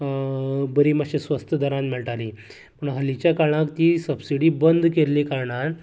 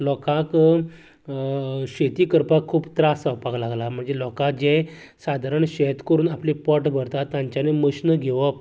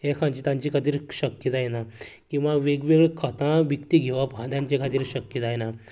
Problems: continuous background conversations